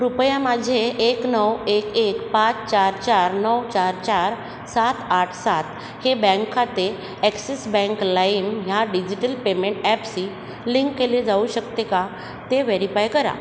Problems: constant background noise, echo